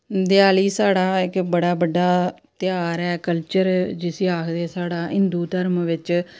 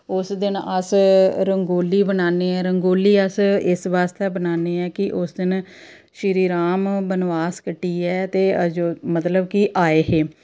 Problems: none marked